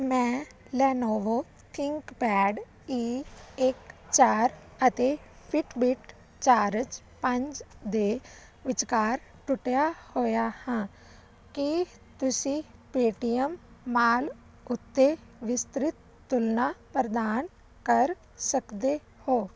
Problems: constant background noise